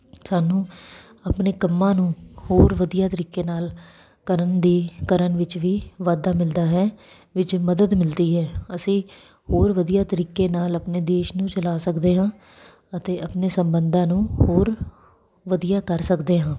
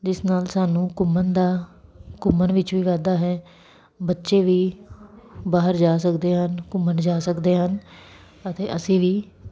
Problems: none marked